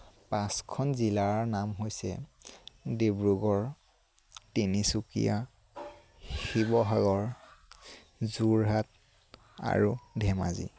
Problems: constant background noise